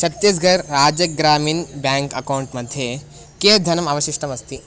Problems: constant background noise